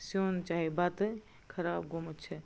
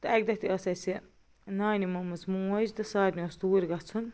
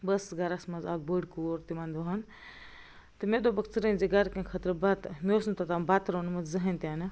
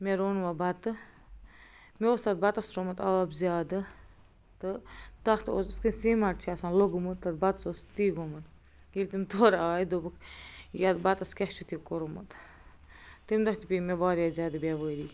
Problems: none marked